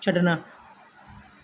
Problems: background sounds at intervals